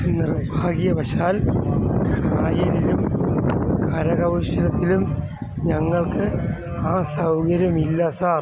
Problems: constant background noise